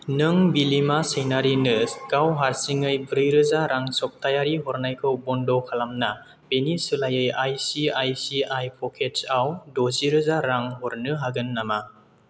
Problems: none marked